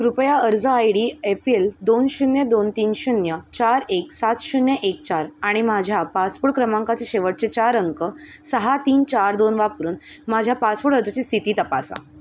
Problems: none marked